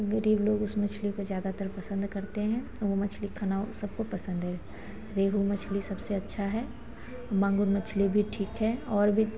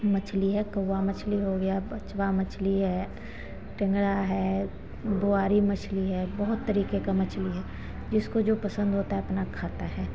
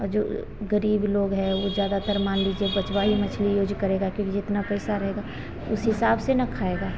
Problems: constant background noise